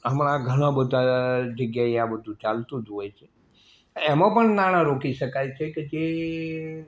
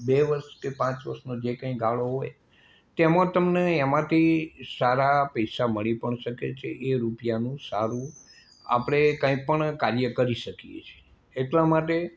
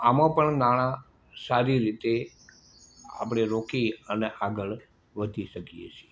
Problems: constant background noise